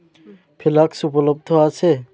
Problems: none marked